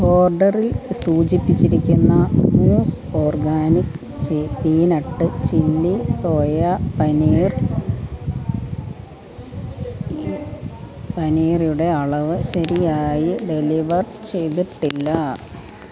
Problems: constant background noise, background conversations at intervals